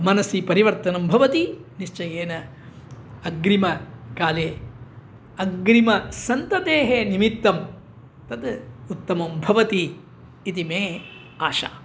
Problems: none marked